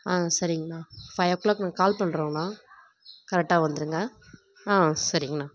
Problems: background sounds at intervals